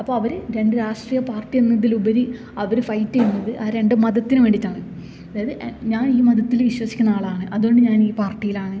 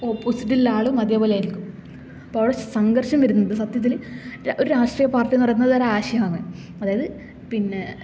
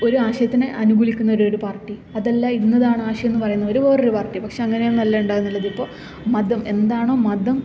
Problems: background sounds at intervals